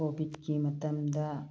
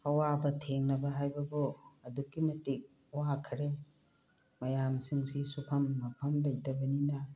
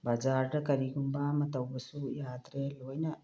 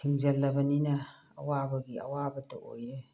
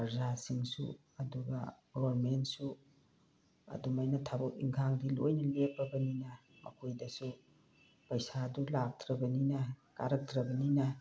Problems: background sounds at intervals, low volume